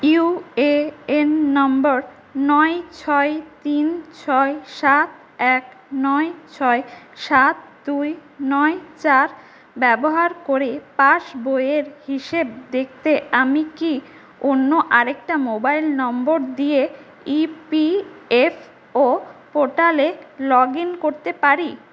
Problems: constant background noise, echo